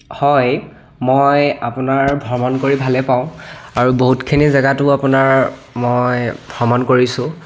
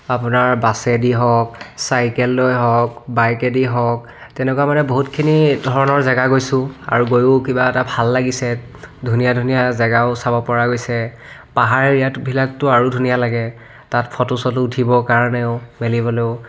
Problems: background sounds at intervals